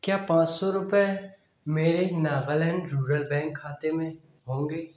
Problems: echo